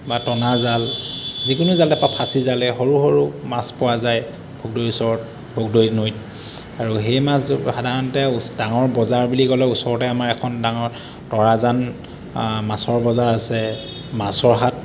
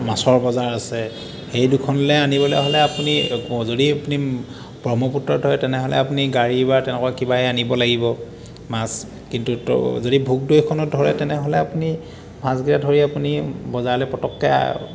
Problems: constant background noise